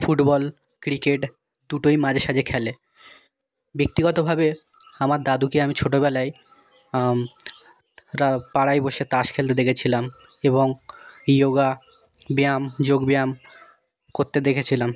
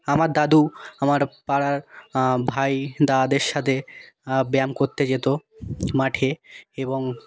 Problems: background conversations at intervals